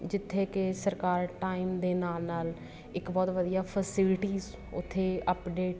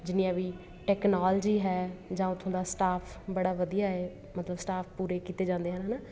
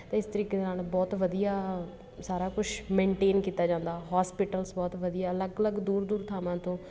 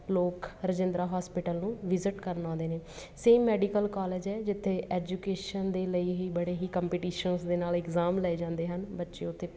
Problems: constant background noise, background conversations at intervals